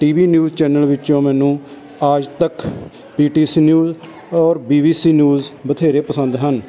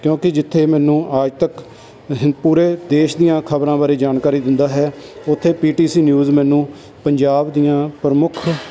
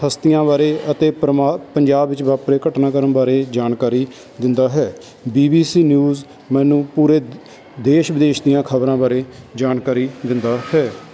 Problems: constant background noise